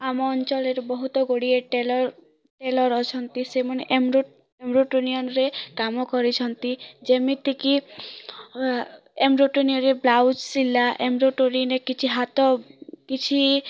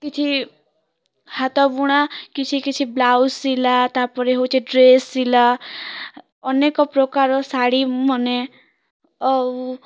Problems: none marked